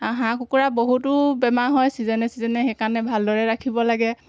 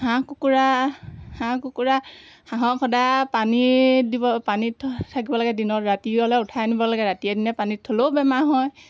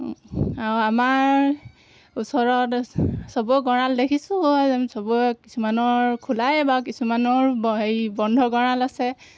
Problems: constant background noise, background conversations at intervals